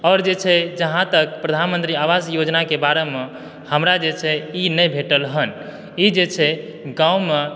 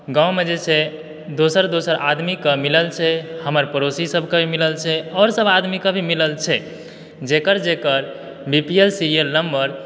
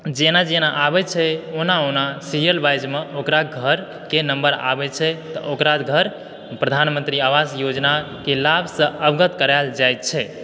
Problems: background sounds at intervals